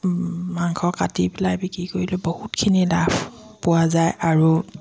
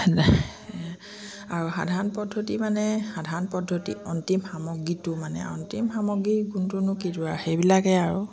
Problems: constant background noise, continuous background conversations